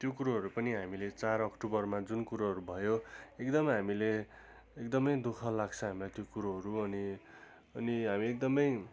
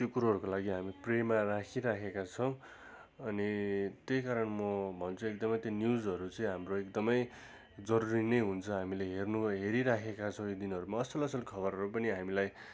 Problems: constant background noise